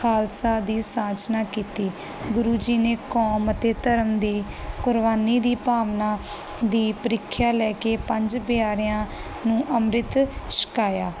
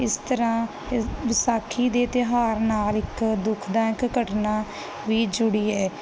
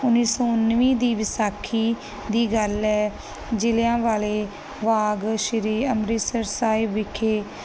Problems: background sounds at intervals